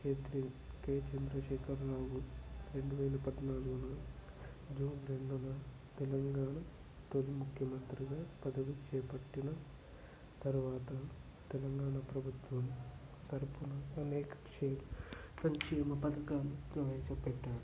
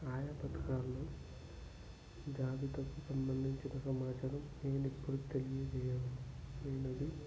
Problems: constant background noise, low volume